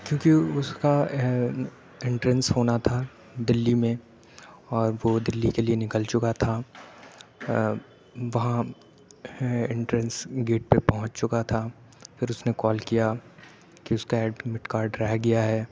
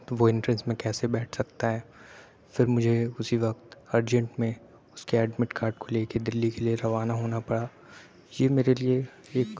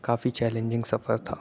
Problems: none marked